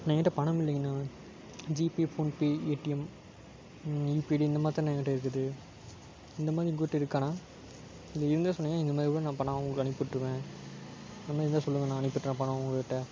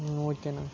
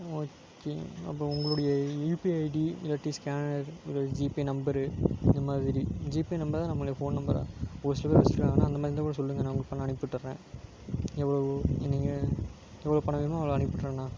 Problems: constant background noise